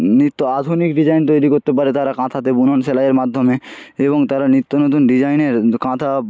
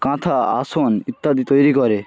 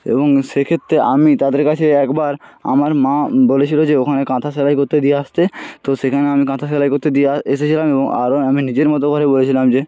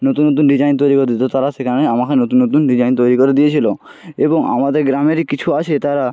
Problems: constant background noise, background conversations at intervals